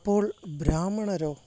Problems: constant background noise, low volume